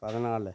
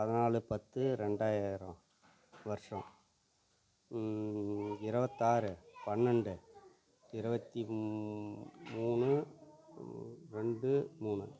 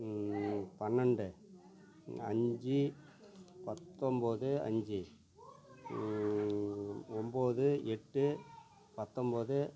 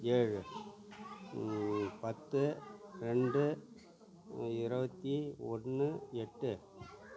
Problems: low volume